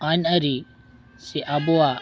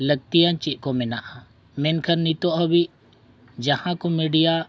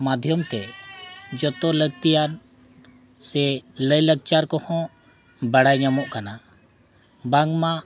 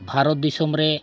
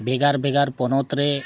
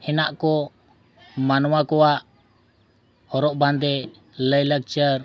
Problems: none marked